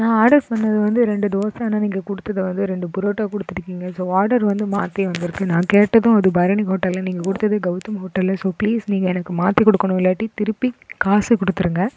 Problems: background sounds at intervals